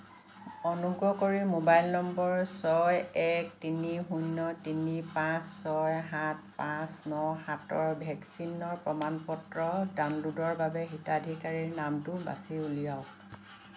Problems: constant background noise